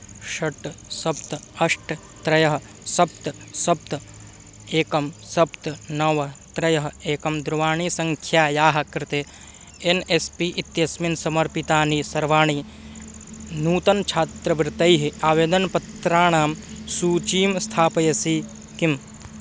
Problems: constant background noise